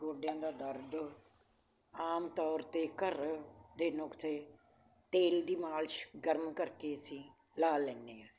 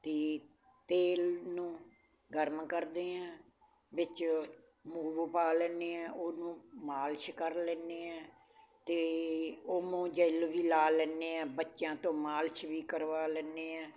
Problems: constant background noise